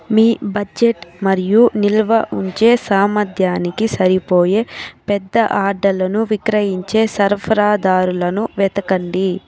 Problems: continuous background conversations